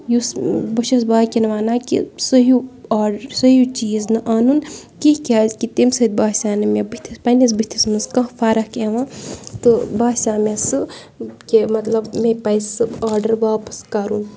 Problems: background sounds at intervals, background conversations at intervals